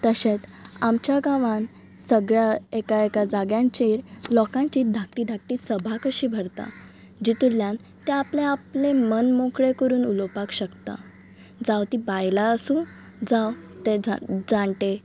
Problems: background sounds at intervals, background conversations at intervals